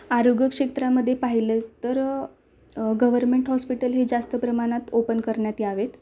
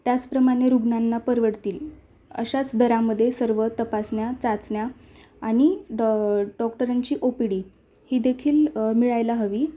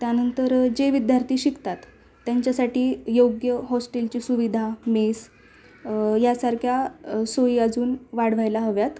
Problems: constant background noise